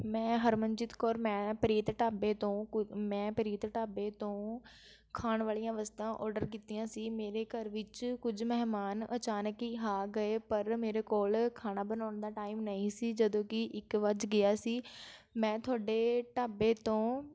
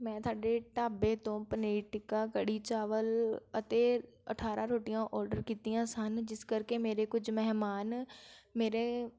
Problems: none marked